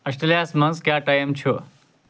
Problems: none marked